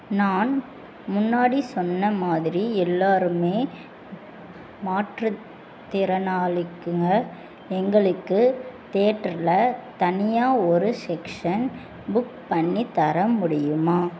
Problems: constant background noise